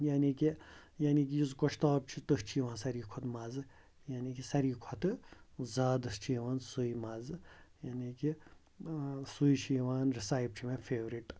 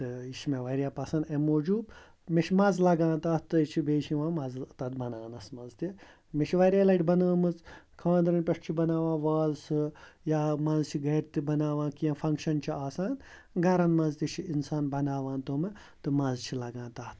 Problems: constant background noise